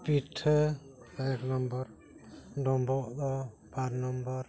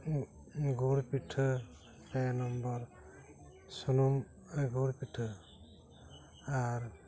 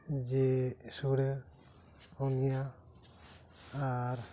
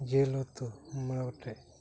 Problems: none marked